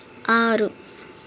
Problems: none marked